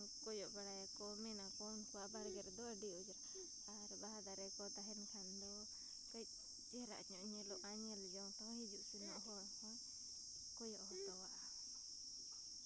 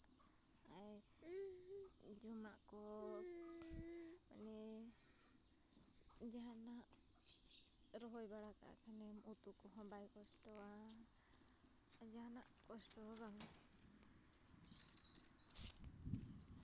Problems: background sounds at intervals, background conversations at intervals